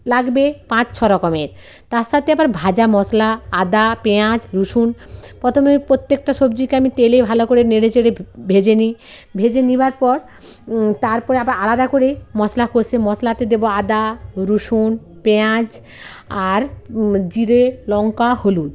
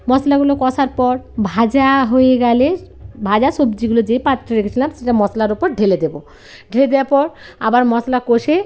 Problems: constant background noise, background conversations at intervals